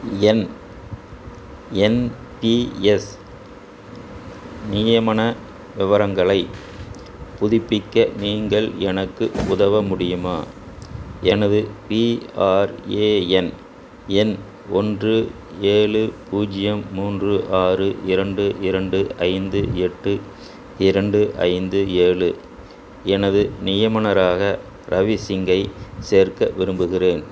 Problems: constant background noise